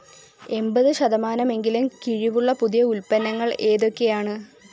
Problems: background sounds at intervals